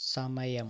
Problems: none marked